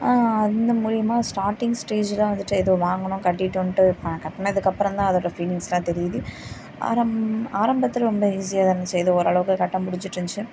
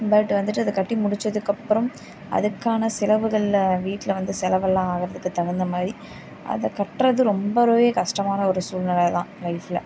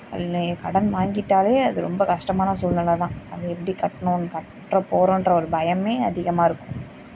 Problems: constant background noise